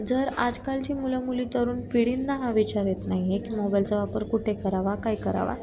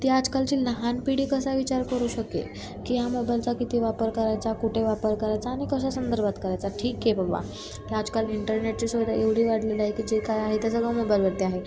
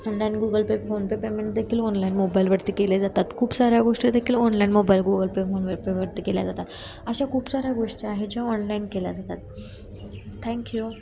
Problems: none marked